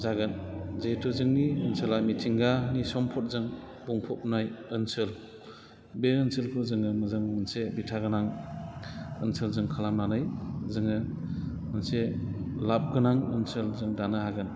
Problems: constant background noise